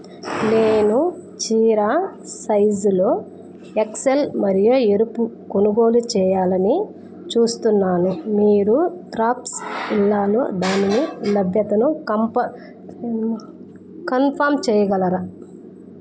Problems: background sounds at intervals